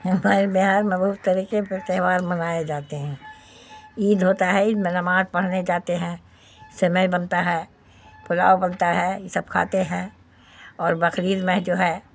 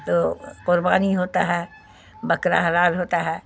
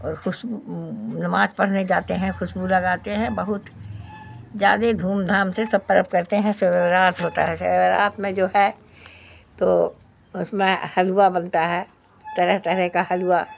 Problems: background sounds at intervals